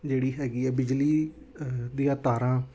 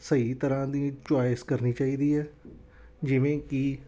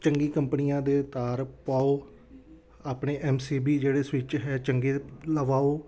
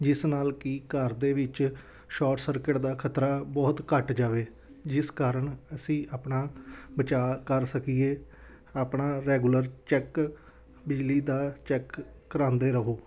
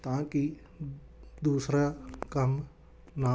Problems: background conversations at intervals